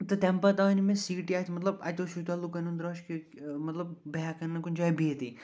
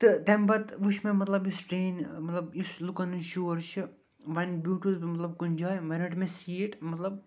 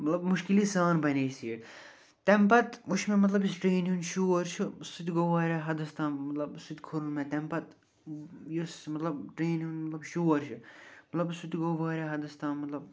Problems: none marked